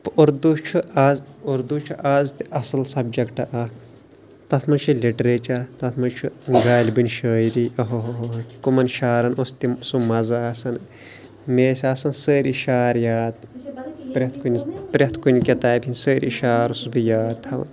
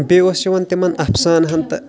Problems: constant background noise, background conversations at intervals